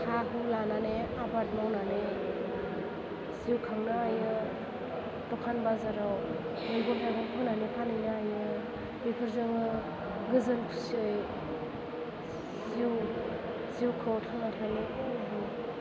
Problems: constant background noise, low volume